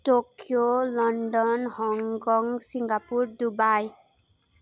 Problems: continuous background conversations